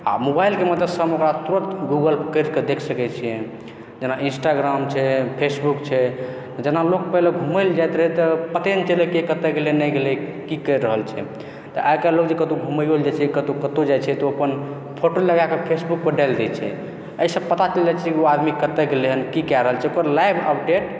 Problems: echo